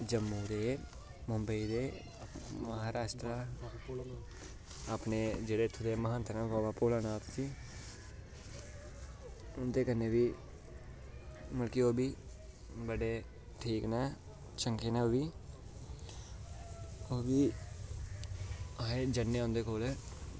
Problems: constant background noise